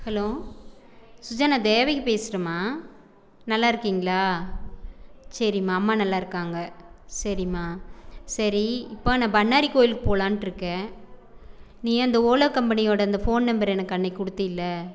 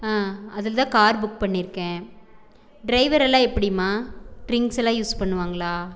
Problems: background conversations at intervals